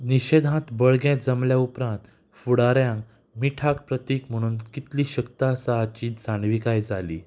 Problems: background sounds at intervals